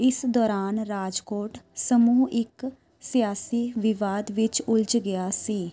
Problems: constant background noise, background conversations at intervals